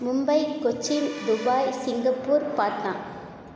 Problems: constant background noise